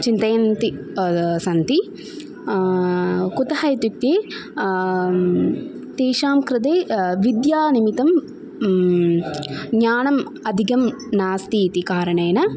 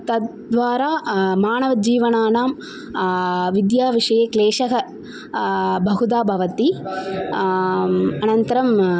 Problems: none marked